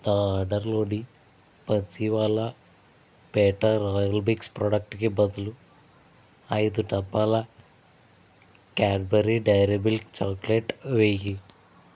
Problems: constant background noise